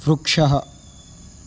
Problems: constant background noise